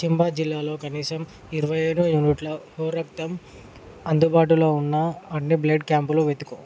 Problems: none marked